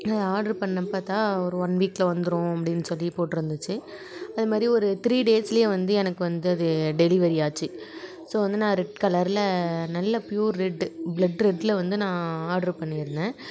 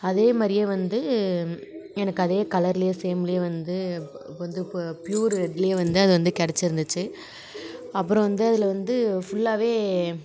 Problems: continuous background conversations